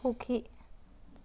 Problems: none marked